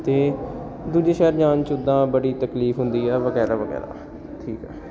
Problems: background sounds at intervals